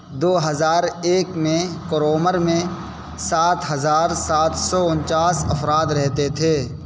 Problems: constant background noise